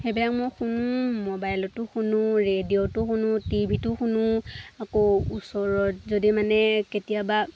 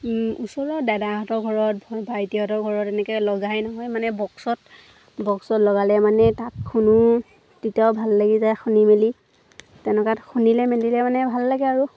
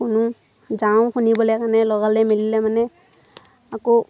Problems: constant background noise, background conversations at intervals